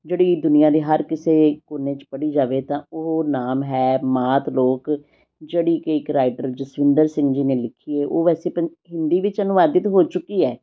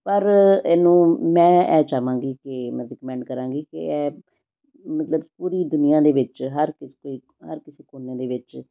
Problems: none marked